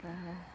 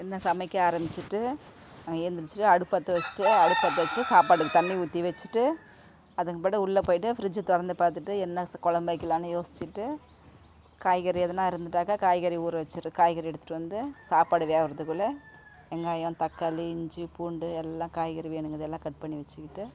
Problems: constant background noise